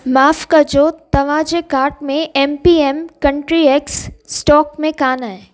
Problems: constant background noise, echo